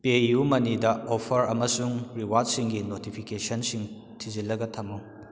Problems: none marked